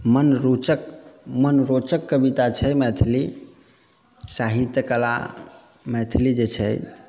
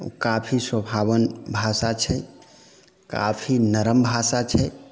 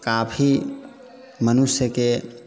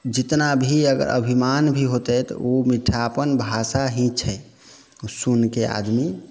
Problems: background sounds at intervals